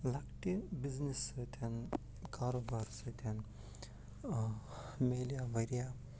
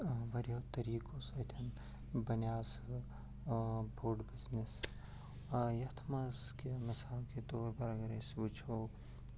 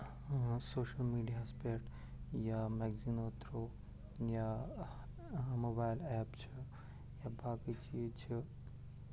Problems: constant background noise, low volume